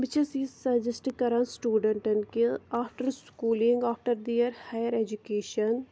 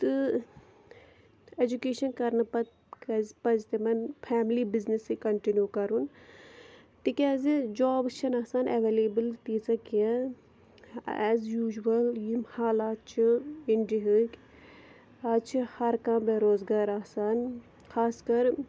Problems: none marked